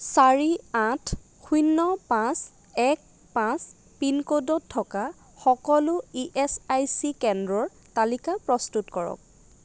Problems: constant background noise